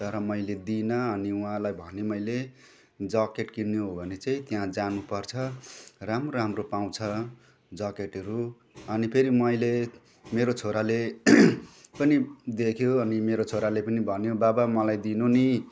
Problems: none marked